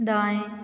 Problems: none marked